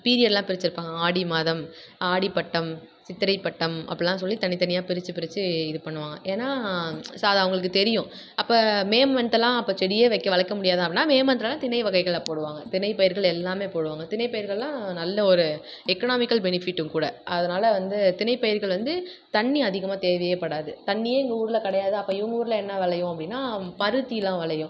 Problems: none marked